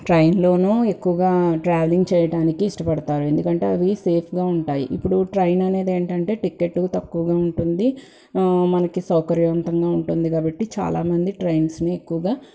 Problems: background sounds at intervals